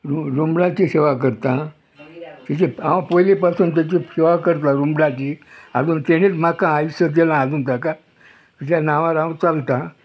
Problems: background sounds at intervals, background conversations at intervals